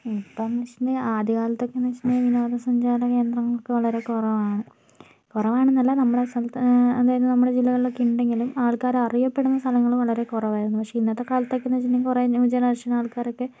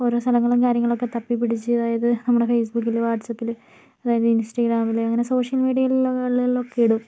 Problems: background sounds at intervals